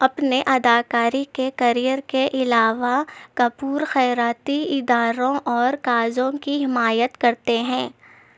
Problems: none marked